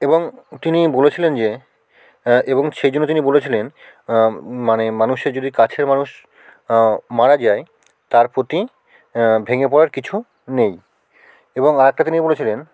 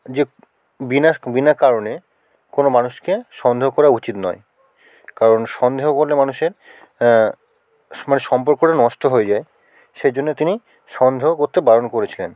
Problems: background sounds at intervals